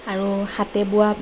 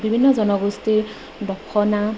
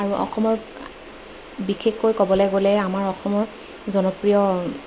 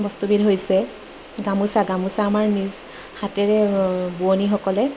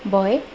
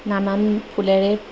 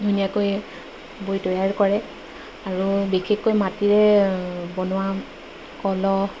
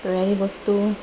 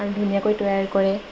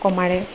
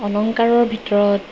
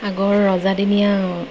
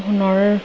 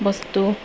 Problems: constant background noise